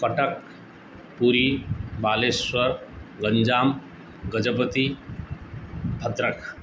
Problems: constant background noise